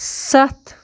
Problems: background sounds at intervals